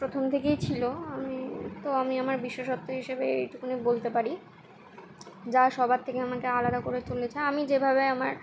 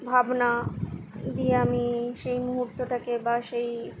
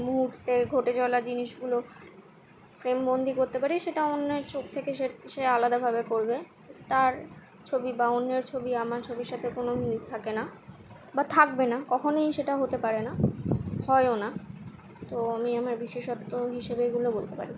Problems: constant background noise